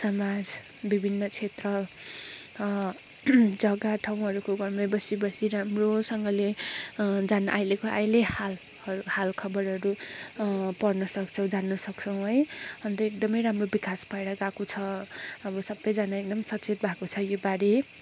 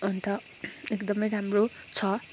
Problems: background sounds at intervals